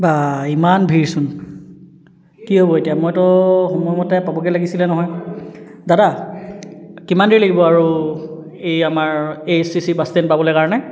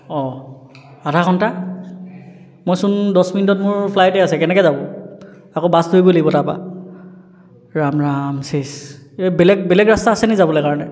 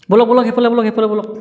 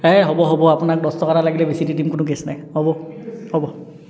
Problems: background conversations at intervals, echo